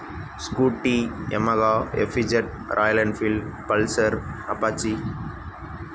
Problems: constant background noise